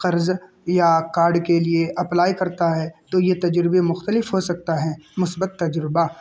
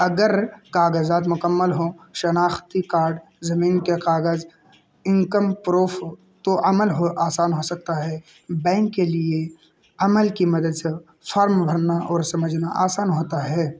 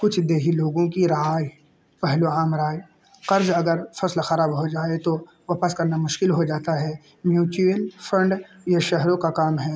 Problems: constant background noise